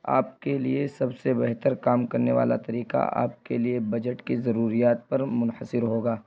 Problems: constant background noise